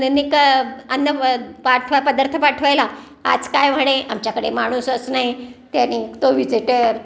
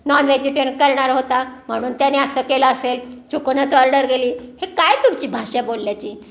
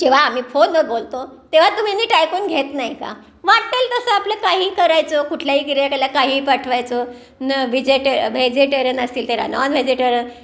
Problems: background sounds at intervals, background conversations at intervals